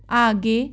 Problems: background sounds at intervals